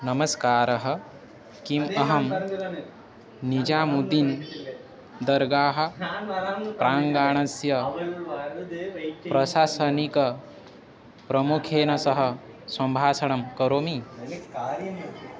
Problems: constant background noise, continuous background conversations